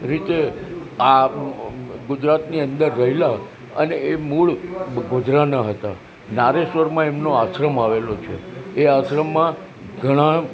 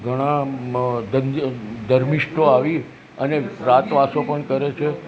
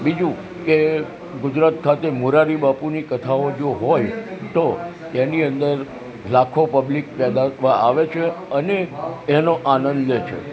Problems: constant background noise